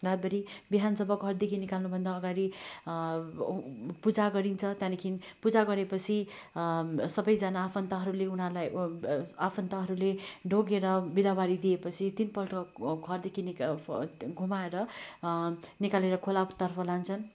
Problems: constant background noise